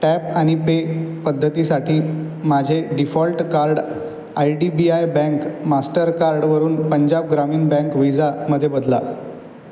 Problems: background sounds at intervals